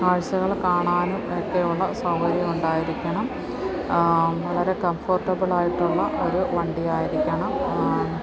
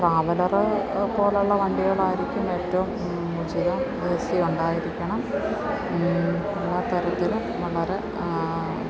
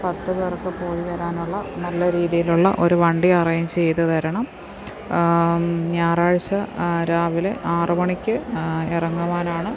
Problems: constant background noise